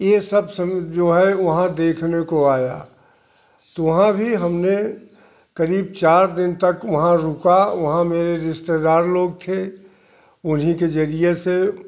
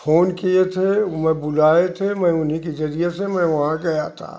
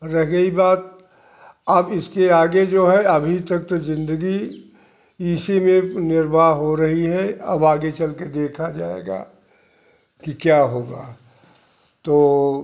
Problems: constant background noise